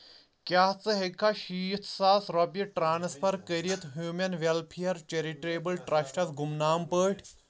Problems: none marked